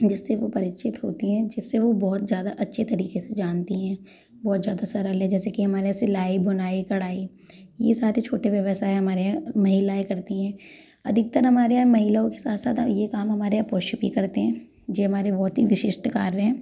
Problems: constant background noise